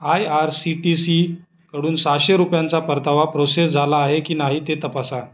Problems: constant background noise